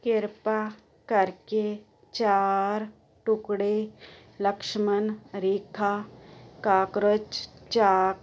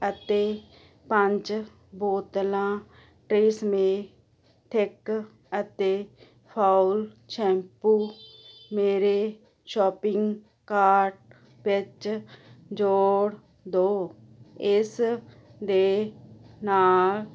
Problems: constant background noise